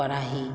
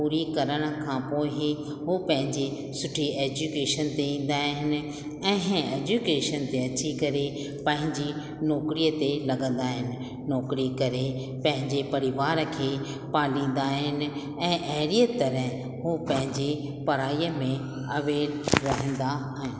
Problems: constant background noise, echo